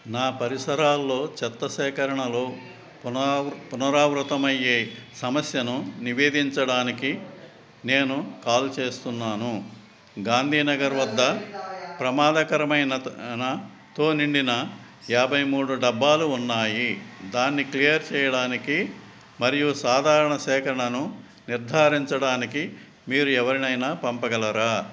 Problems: background conversations at intervals